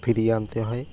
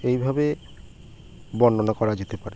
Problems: none marked